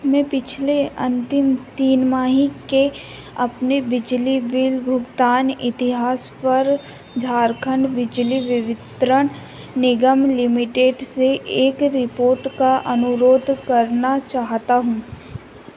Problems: none marked